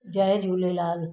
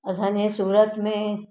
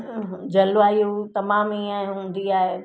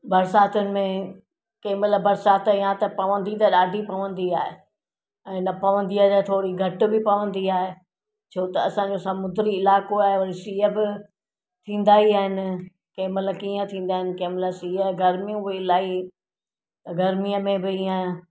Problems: none marked